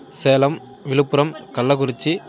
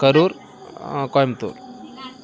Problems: continuous background conversations